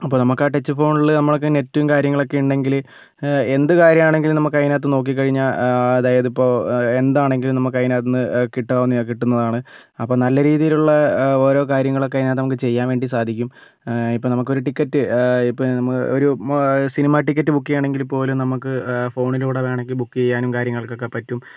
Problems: none marked